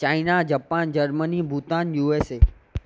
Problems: none marked